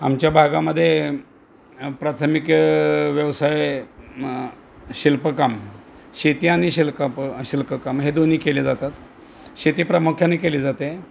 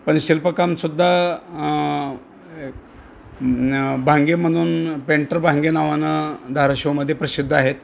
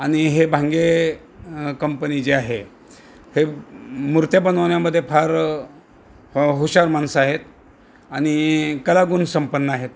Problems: none marked